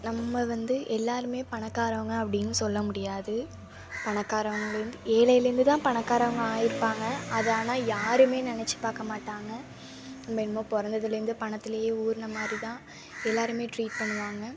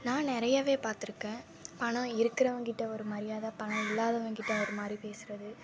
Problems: constant background noise